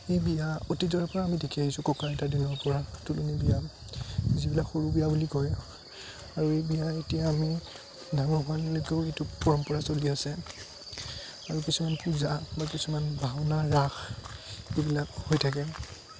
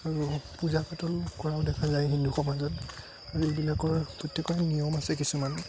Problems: constant background noise